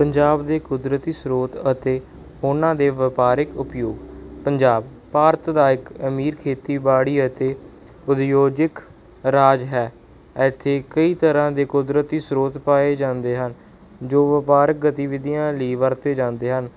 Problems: background sounds at intervals